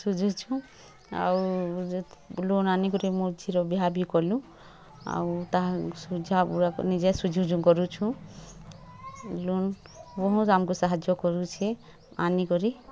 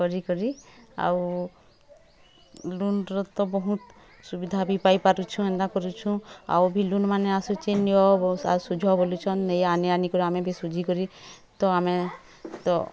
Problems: constant background noise, continuous background conversations